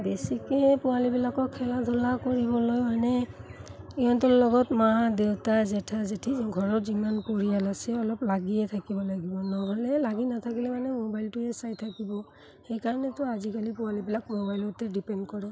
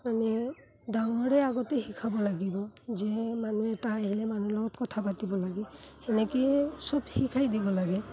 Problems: constant background noise